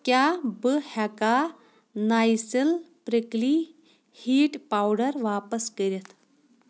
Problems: none marked